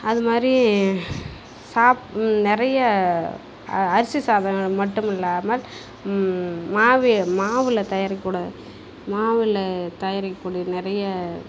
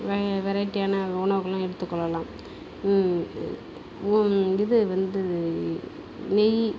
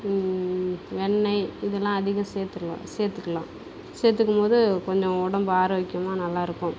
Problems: background sounds at intervals